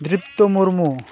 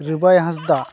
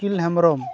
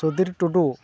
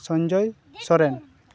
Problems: background conversations at intervals